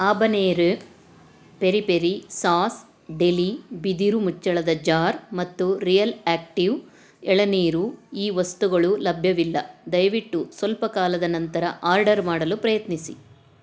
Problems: none marked